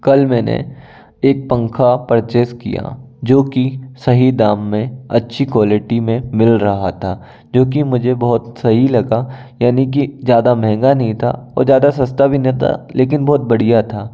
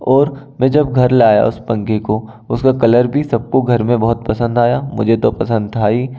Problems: none marked